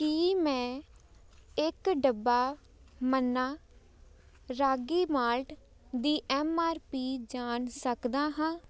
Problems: background sounds at intervals